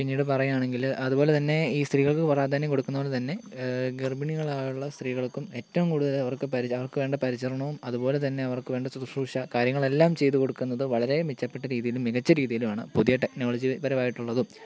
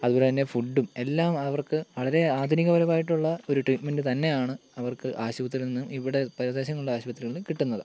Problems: constant background noise